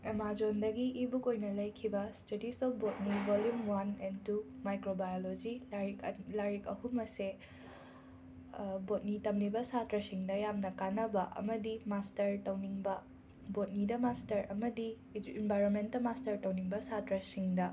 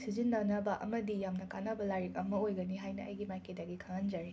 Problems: constant background noise